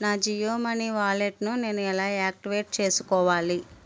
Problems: constant background noise